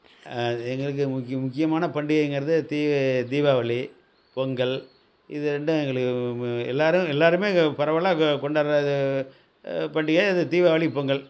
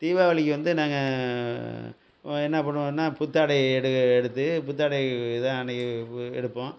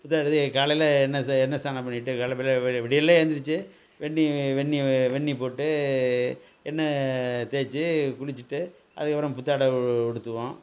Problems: none marked